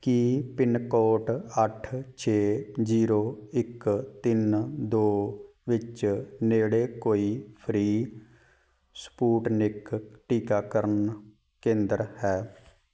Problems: background sounds at intervals